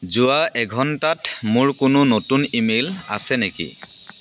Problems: constant background noise